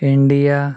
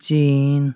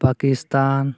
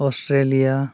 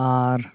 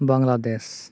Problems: none marked